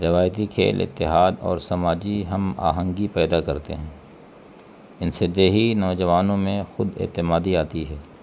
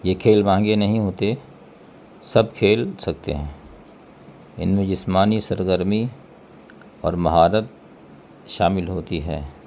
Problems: constant background noise